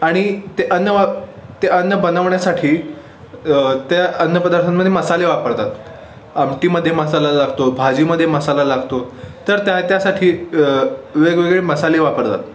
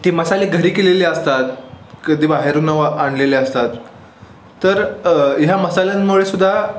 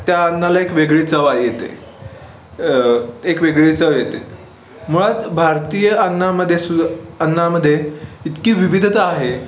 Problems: constant background noise, background conversations at intervals